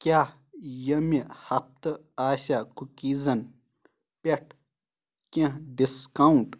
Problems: none marked